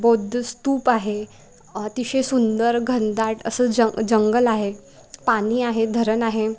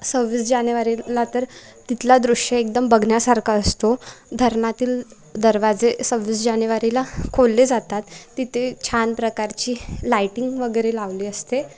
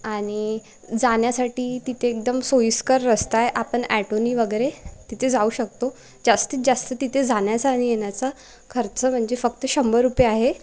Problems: none marked